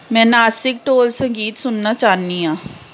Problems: constant background noise